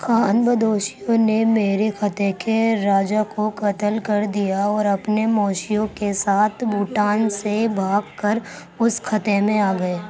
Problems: constant background noise